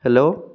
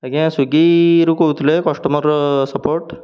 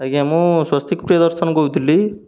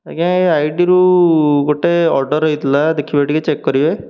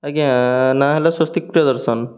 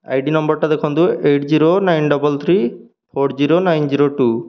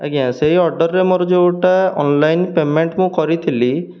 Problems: none marked